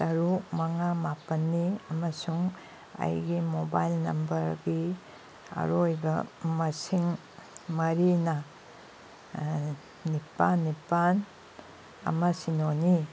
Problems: background sounds at intervals